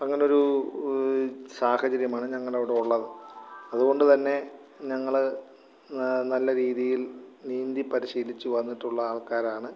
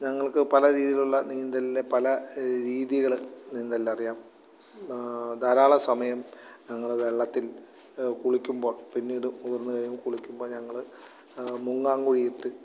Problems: background sounds at intervals, low volume